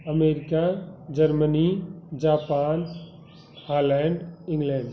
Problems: constant background noise